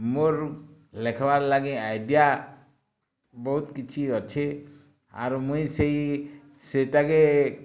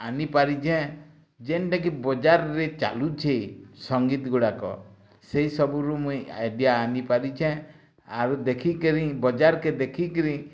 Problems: none marked